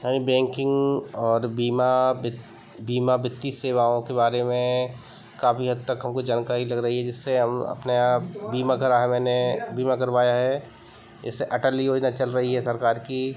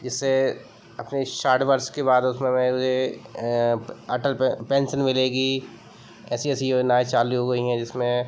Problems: constant background noise